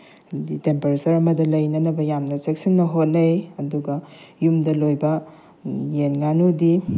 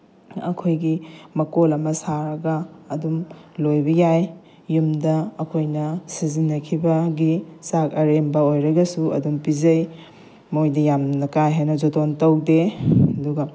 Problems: background sounds at intervals